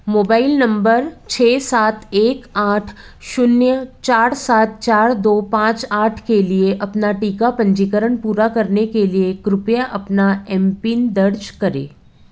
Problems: none marked